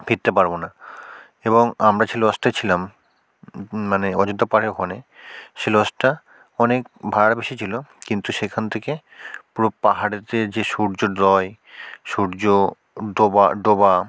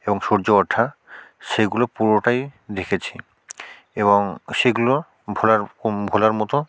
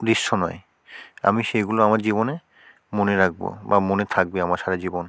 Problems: none marked